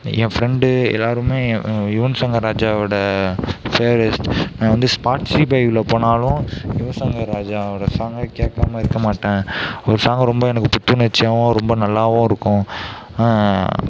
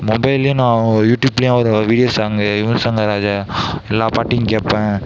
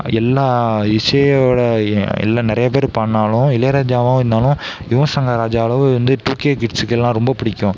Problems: constant background noise